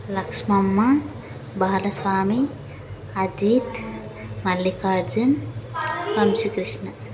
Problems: none marked